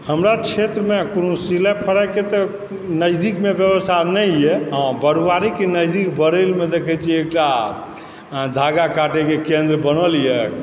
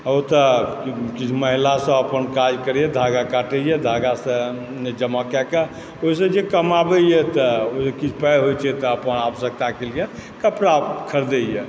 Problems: constant background noise